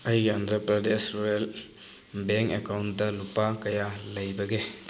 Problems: constant background noise